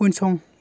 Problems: constant background noise